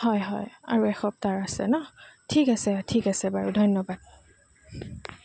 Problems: constant background noise